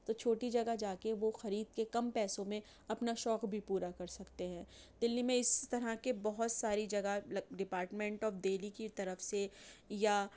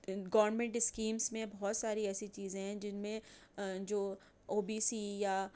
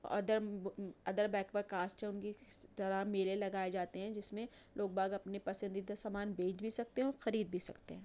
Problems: none marked